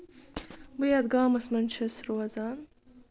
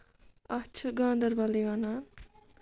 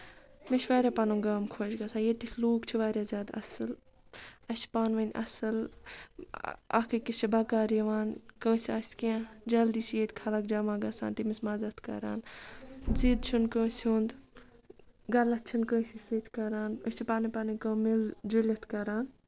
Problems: none marked